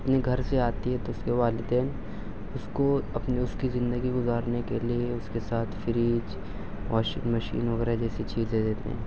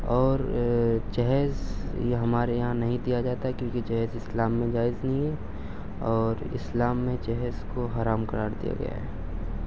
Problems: none marked